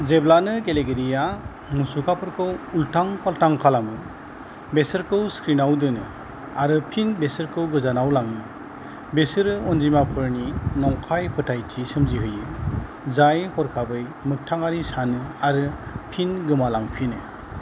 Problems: constant background noise